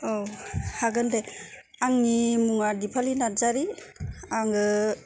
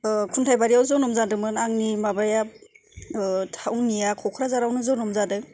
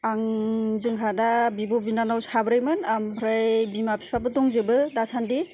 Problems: none marked